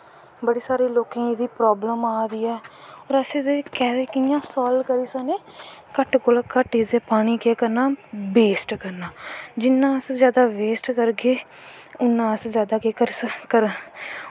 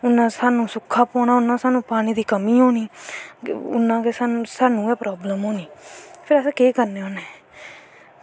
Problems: constant background noise